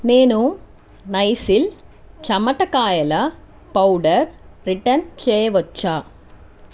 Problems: constant background noise